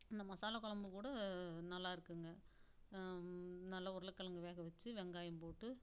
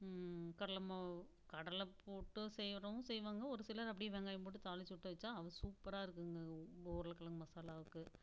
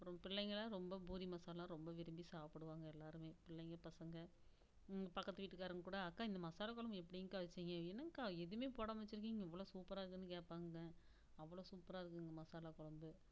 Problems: background sounds at intervals, low volume